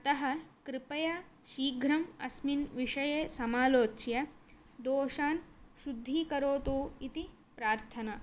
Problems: none marked